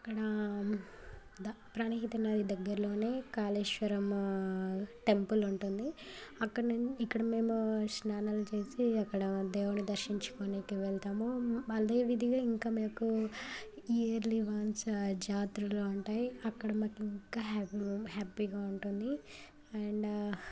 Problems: constant background noise, continuous background conversations